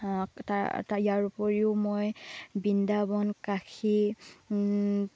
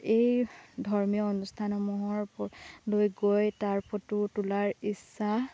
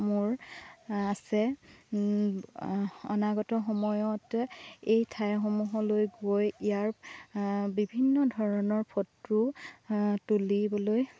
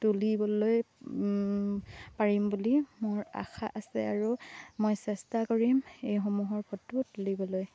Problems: constant background noise